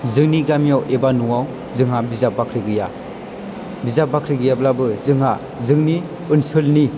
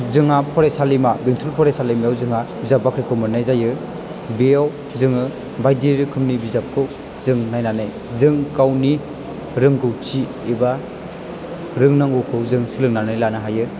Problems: none marked